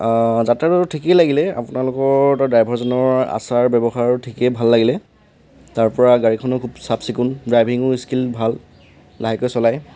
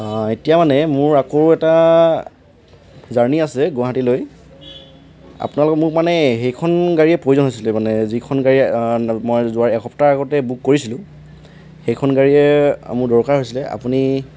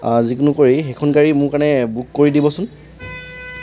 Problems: background sounds at intervals